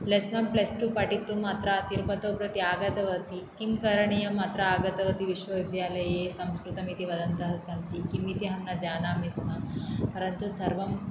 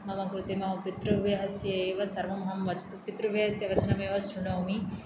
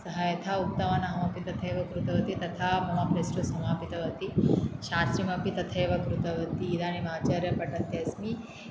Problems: none marked